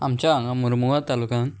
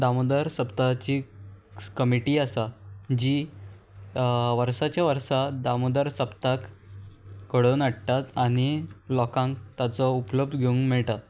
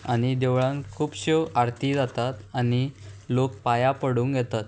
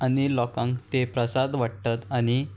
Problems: constant background noise